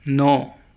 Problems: none marked